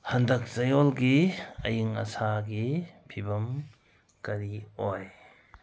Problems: none marked